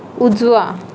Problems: constant background noise